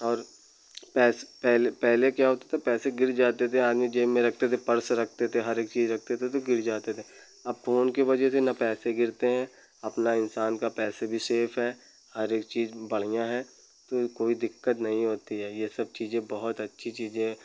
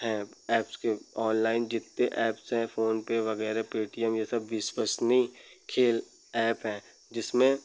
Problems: none marked